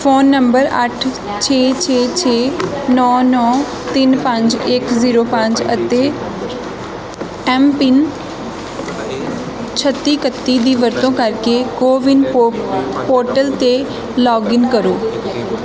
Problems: constant background noise, continuous background conversations